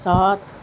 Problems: constant background noise